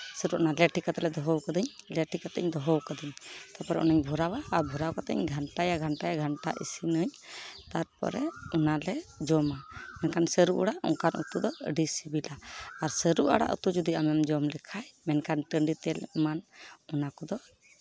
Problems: background sounds at intervals